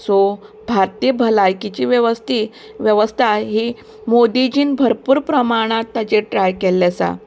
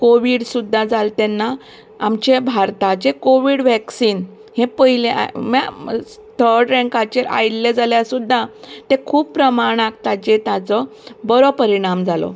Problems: background sounds at intervals